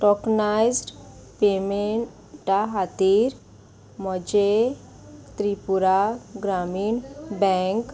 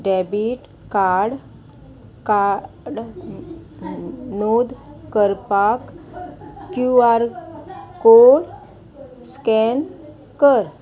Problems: constant background noise